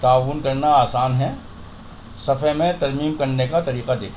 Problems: constant background noise